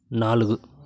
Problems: background sounds at intervals